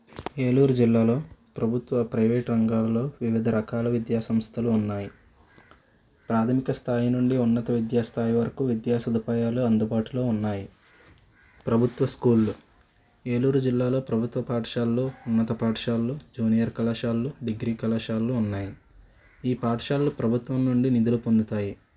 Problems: background conversations at intervals, low volume